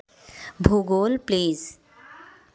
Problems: background conversations at intervals